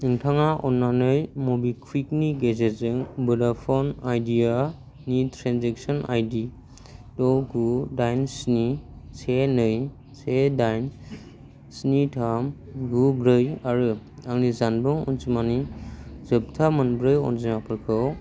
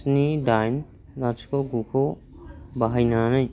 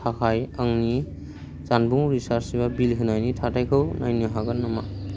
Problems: constant background noise